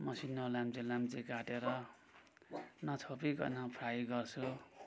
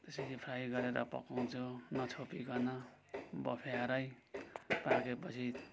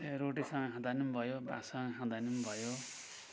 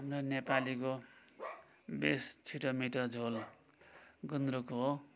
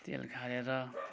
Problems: none marked